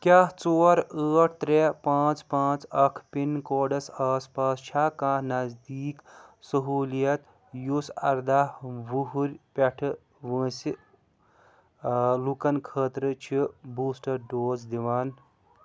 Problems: background sounds at intervals, background conversations at intervals